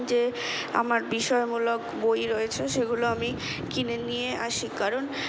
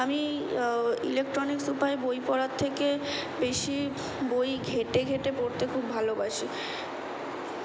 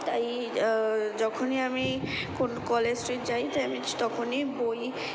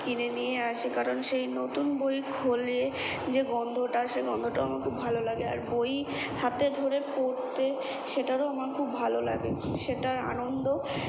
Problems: constant background noise